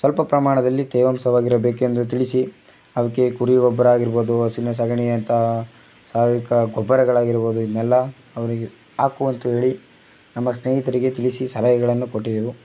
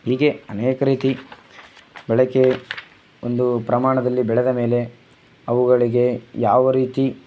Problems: background sounds at intervals